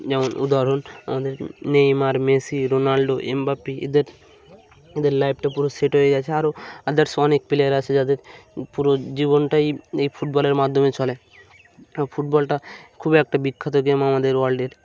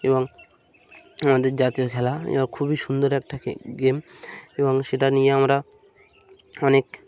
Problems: none marked